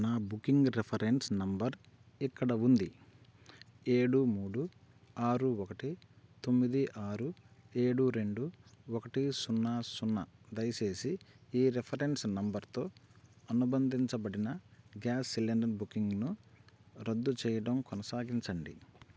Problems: constant background noise